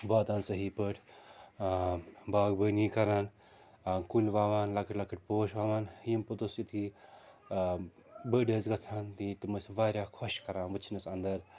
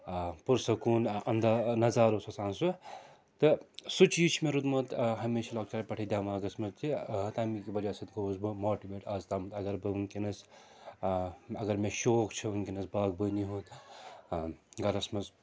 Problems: constant background noise